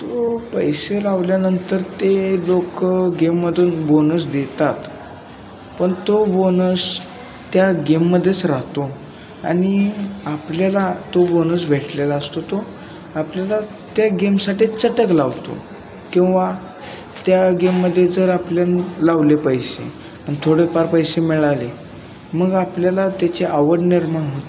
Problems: none marked